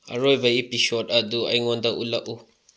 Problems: low volume